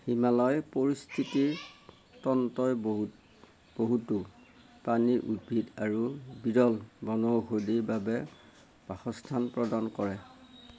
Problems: constant background noise